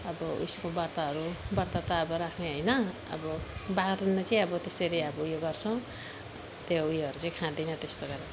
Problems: background sounds at intervals